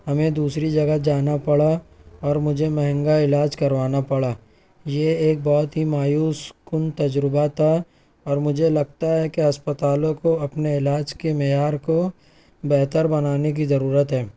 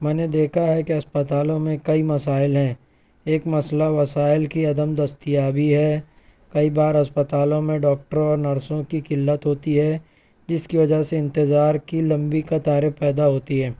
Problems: none marked